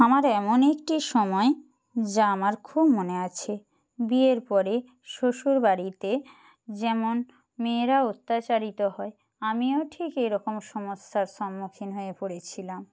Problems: background sounds at intervals